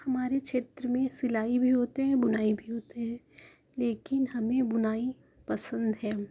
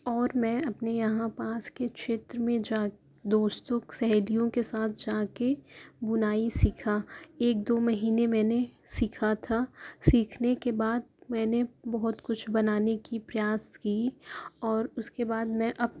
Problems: constant background noise